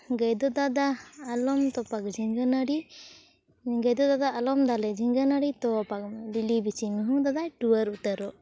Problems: background conversations at intervals